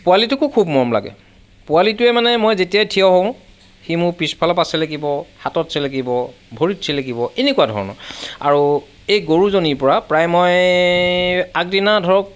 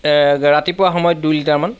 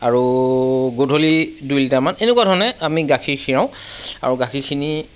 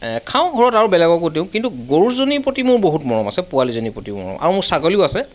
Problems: none marked